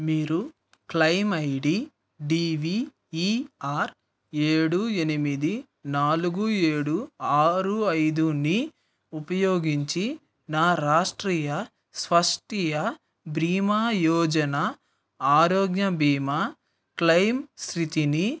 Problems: none marked